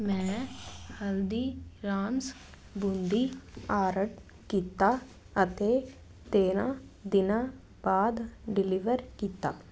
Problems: none marked